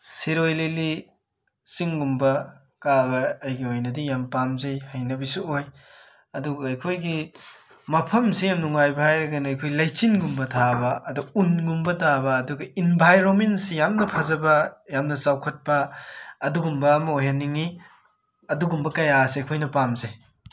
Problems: background sounds at intervals